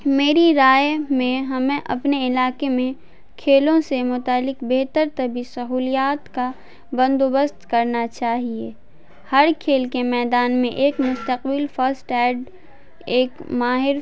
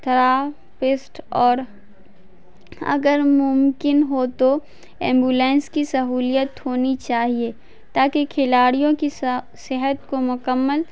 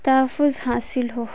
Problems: none marked